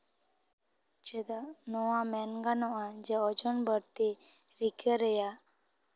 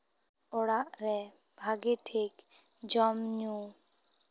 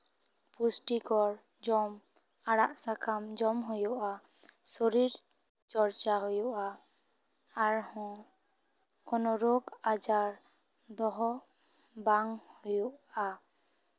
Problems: none marked